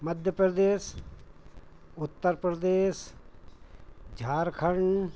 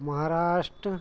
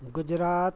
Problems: constant background noise, background conversations at intervals